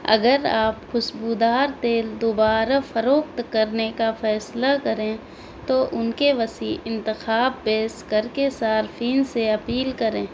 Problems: constant background noise